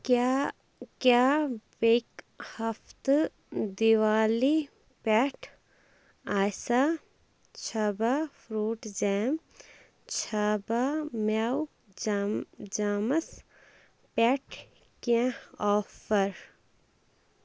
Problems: constant background noise